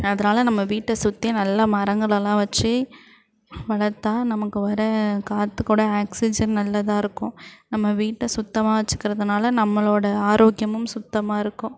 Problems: background conversations at intervals